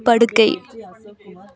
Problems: continuous background conversations